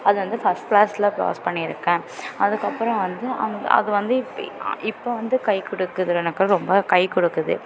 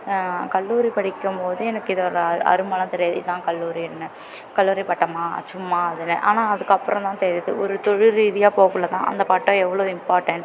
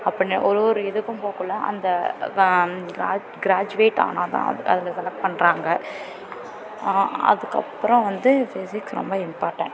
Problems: continuous background conversations